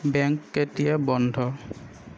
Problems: constant background noise